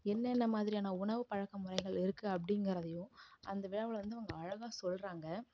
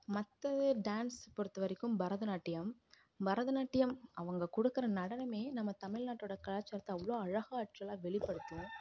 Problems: background sounds at intervals, low volume